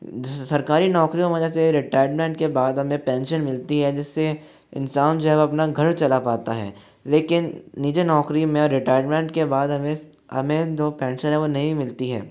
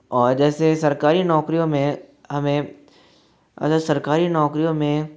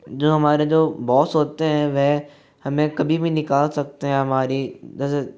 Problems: background sounds at intervals